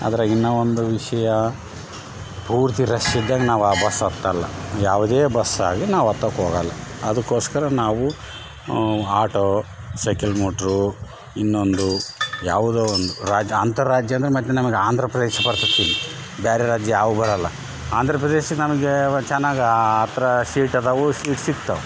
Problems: background sounds at intervals